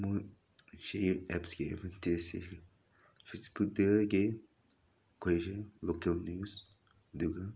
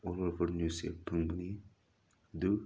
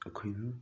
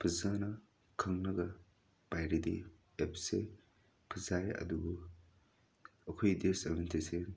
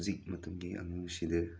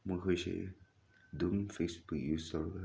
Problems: none marked